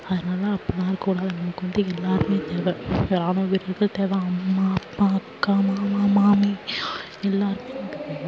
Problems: background sounds at intervals, low volume